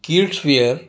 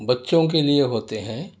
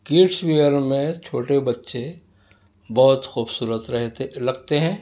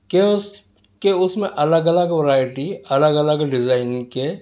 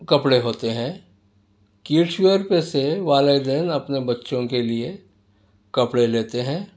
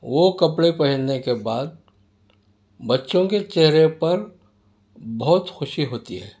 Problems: none marked